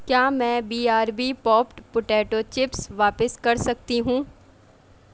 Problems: none marked